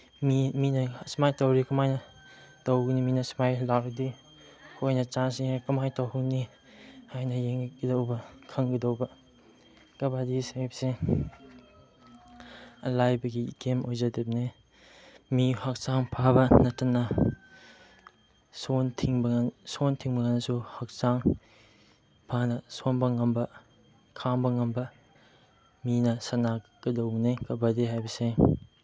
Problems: none marked